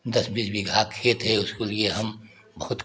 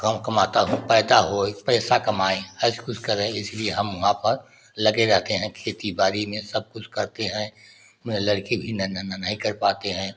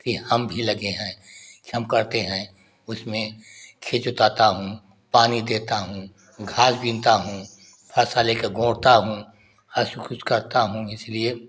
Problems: none marked